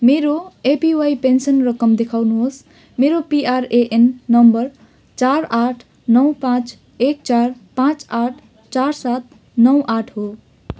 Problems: background sounds at intervals